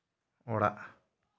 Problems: echo